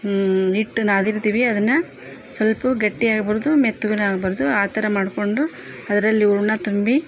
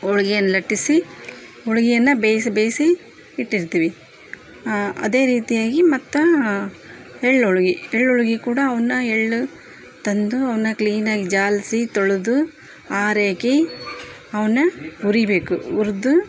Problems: background sounds at intervals, background conversations at intervals